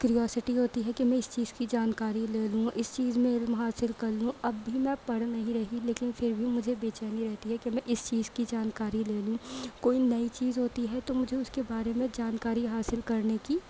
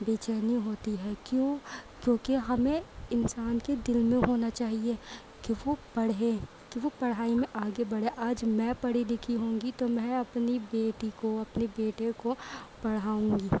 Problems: constant background noise